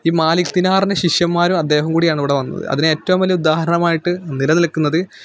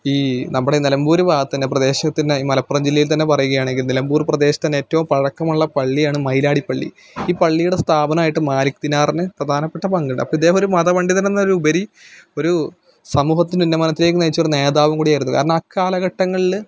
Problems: none marked